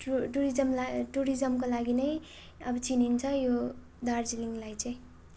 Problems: none marked